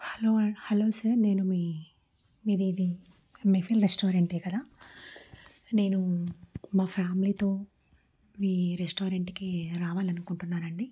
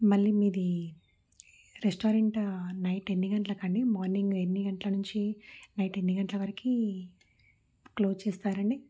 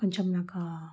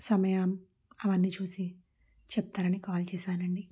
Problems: low volume